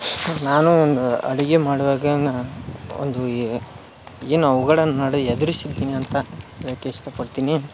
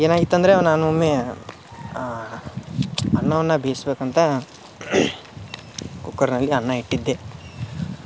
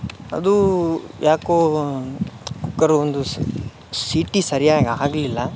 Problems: background sounds at intervals